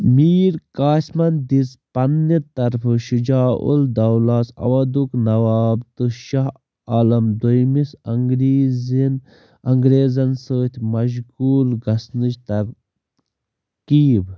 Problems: background sounds at intervals